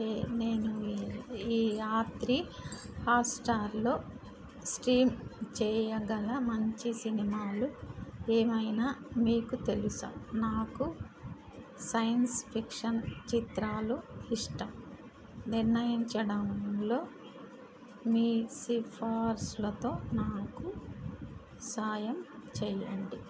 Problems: constant background noise